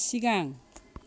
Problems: none marked